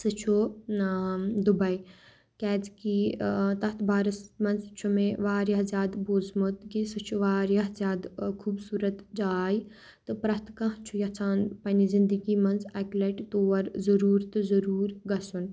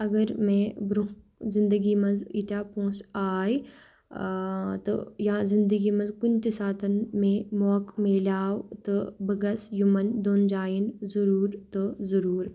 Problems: none marked